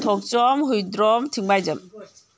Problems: none marked